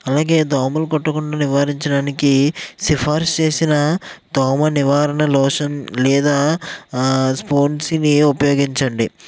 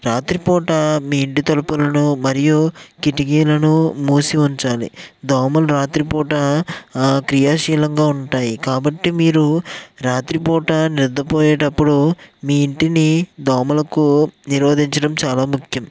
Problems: none marked